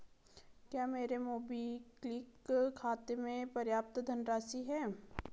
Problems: low volume